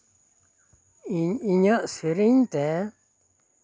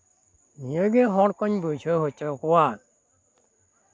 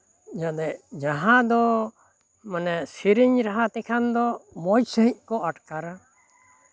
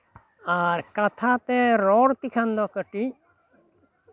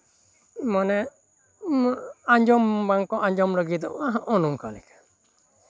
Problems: none marked